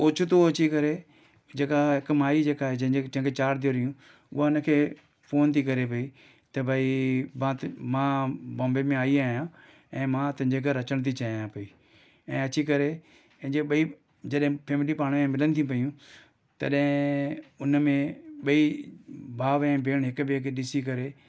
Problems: none marked